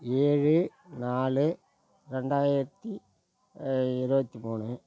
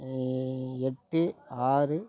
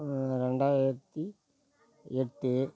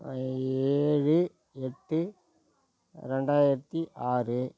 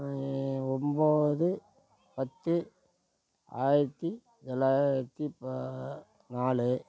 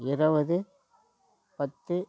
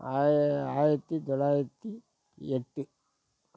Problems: background sounds at intervals